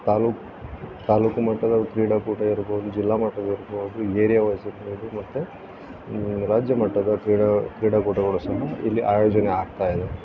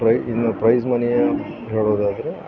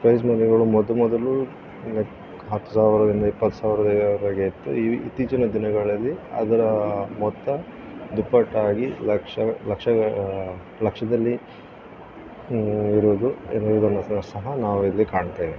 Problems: constant background noise